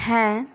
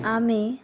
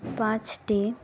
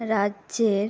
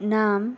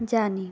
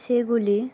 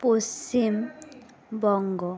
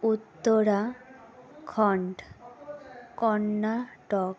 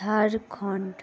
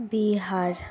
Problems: background conversations at intervals